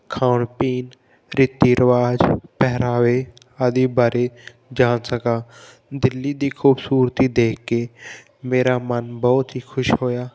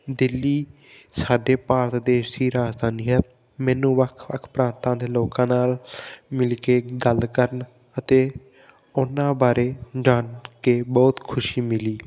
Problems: background sounds at intervals